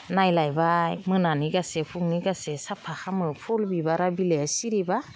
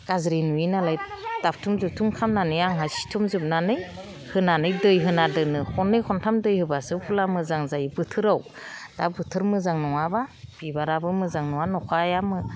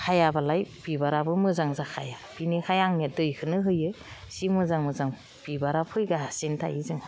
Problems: none marked